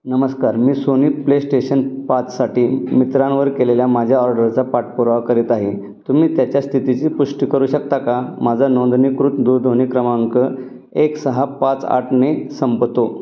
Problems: none marked